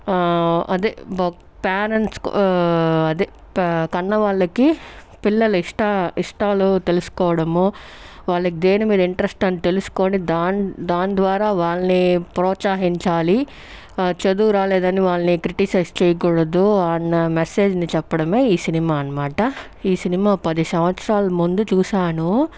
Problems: background sounds at intervals